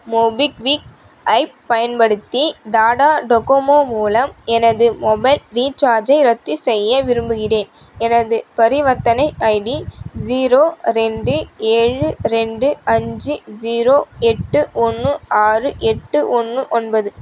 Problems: none marked